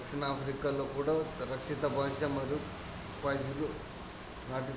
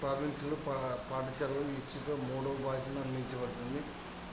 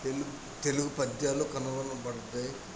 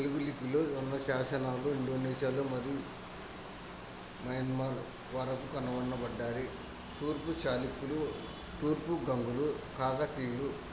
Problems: constant background noise, background conversations at intervals, low volume